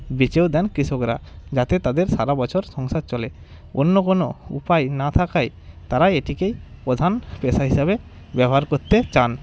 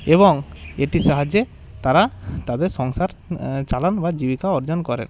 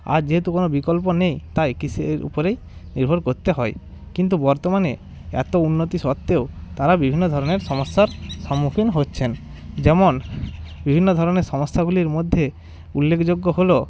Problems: none marked